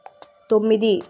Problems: constant background noise